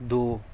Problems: constant background noise